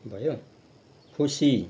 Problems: none marked